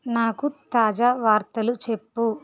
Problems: none marked